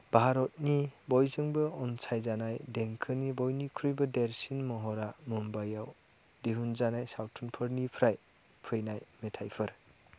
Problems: none marked